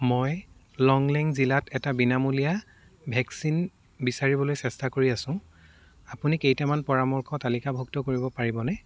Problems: background sounds at intervals